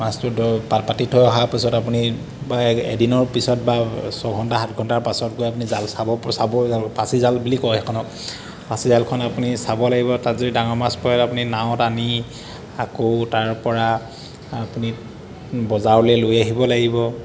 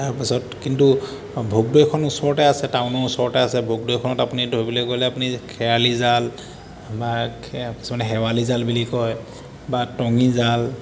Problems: constant background noise